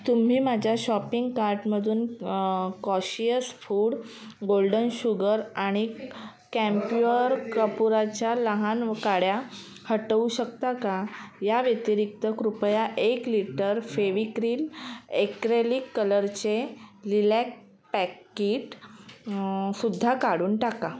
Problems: constant background noise, background conversations at intervals